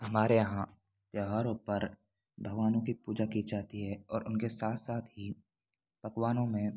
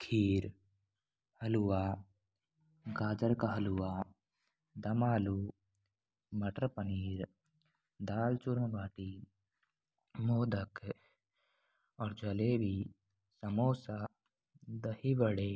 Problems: none marked